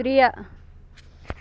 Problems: constant background noise